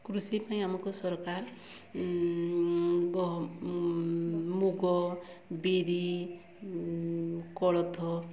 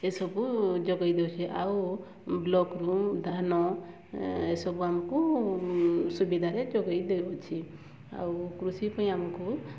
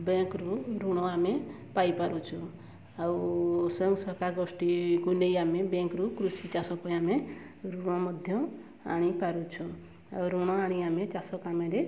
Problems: background sounds at intervals, low volume